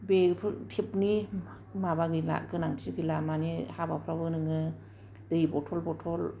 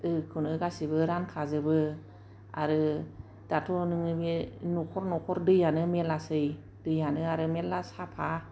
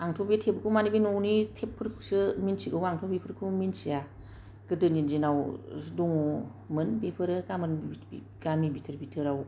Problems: none marked